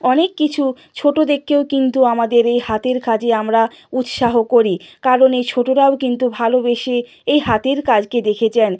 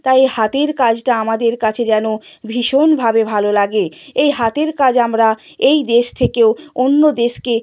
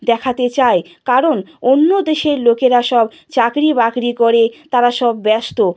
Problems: none marked